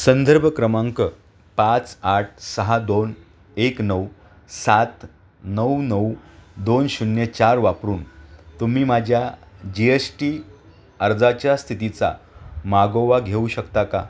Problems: background sounds at intervals